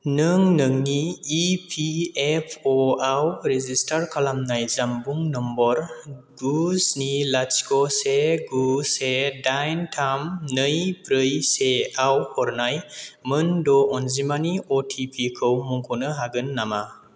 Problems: constant background noise